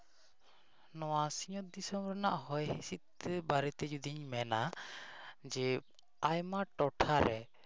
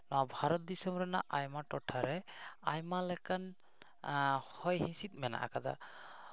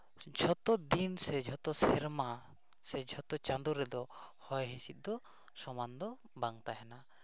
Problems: background sounds at intervals